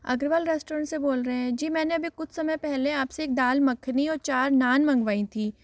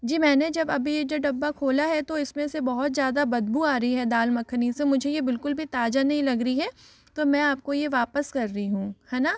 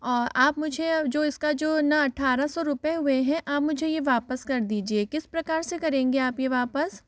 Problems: background sounds at intervals, echo